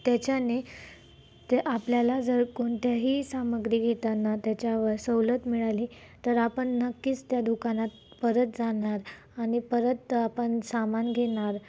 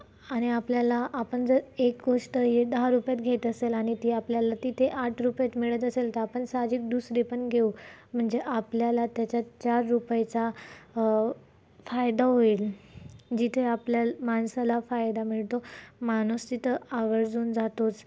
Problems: constant background noise, background conversations at intervals